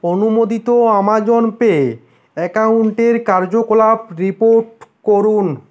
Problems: constant background noise